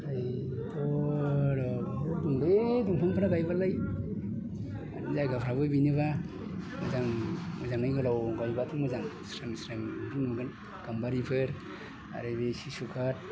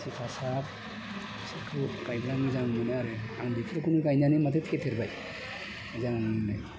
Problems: constant background noise